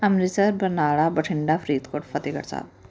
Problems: none marked